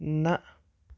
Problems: background sounds at intervals